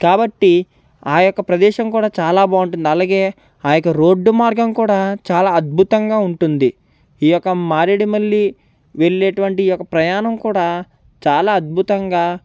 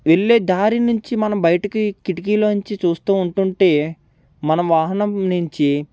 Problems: none marked